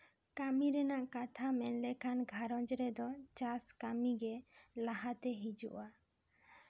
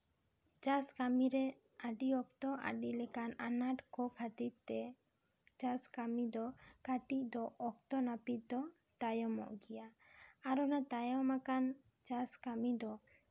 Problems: none marked